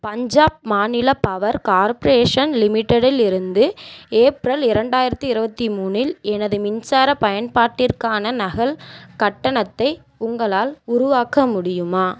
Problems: none marked